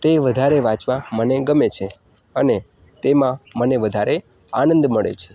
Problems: none marked